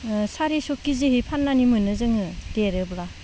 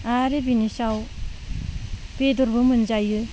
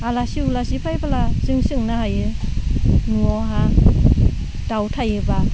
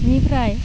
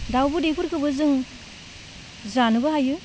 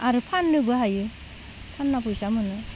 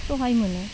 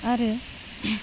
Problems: low volume